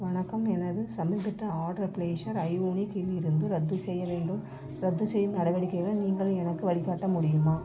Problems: background sounds at intervals